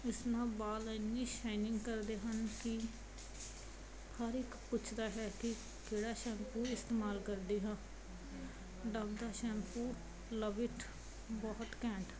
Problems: background sounds at intervals